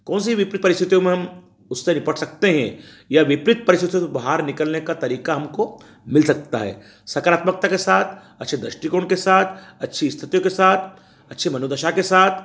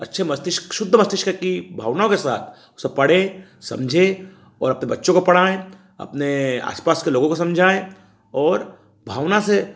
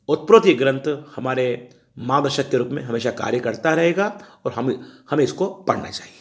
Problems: none marked